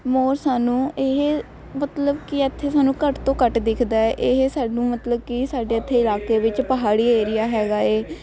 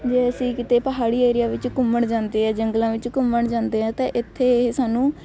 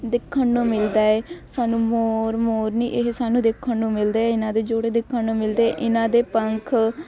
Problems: constant background noise